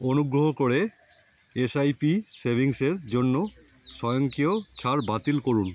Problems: constant background noise